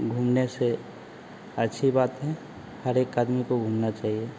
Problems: constant background noise